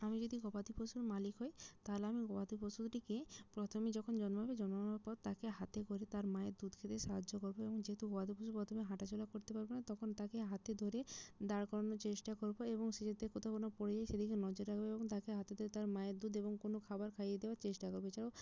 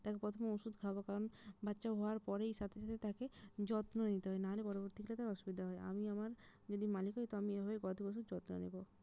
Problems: low volume